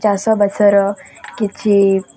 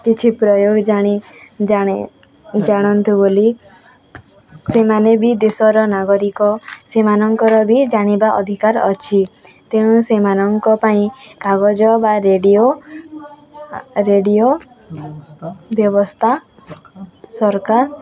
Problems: constant background noise, continuous background conversations